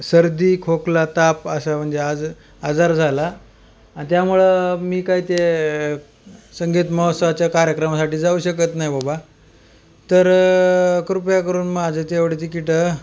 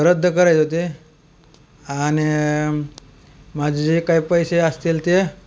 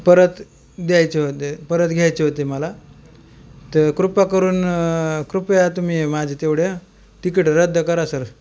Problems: none marked